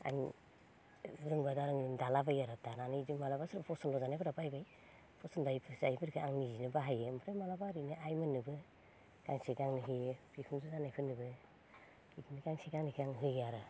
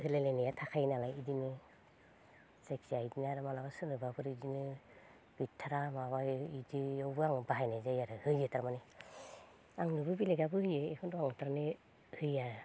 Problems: low volume